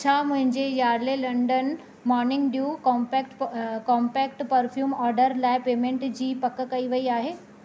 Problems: none marked